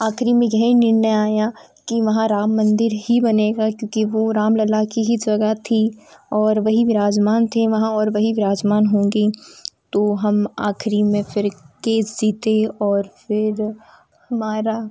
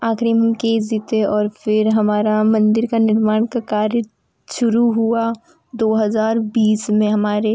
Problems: none marked